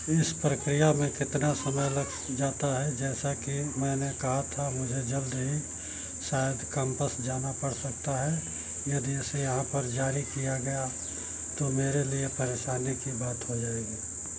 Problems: none marked